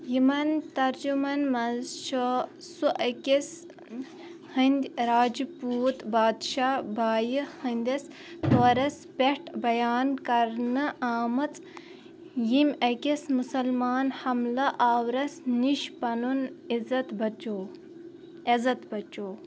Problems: none marked